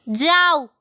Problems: constant background noise